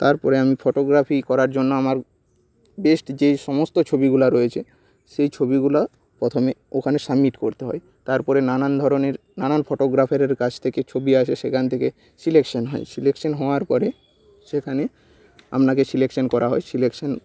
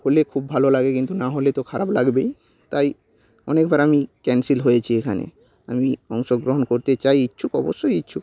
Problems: background sounds at intervals